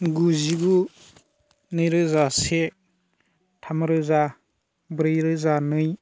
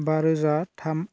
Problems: constant background noise